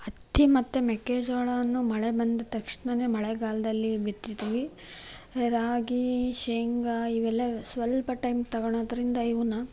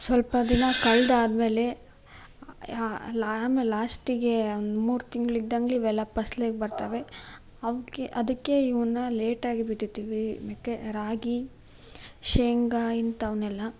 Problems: none marked